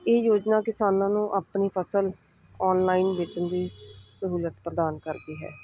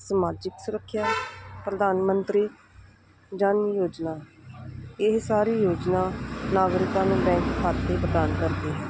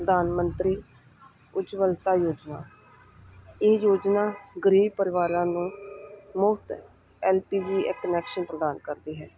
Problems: none marked